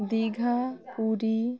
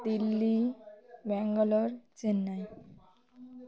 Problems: continuous background conversations